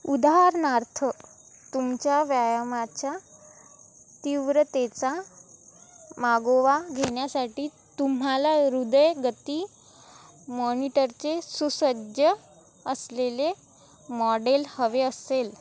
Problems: none marked